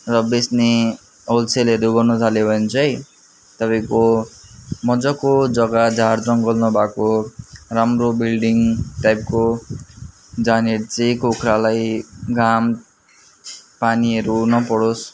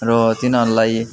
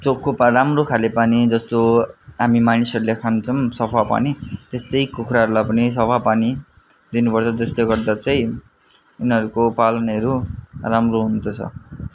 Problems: constant background noise